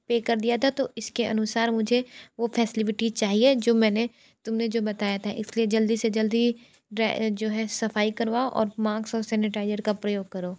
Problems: constant background noise